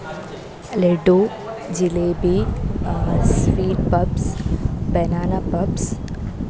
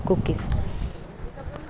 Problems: none marked